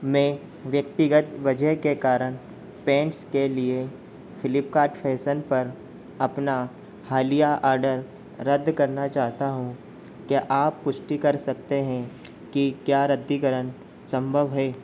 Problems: constant background noise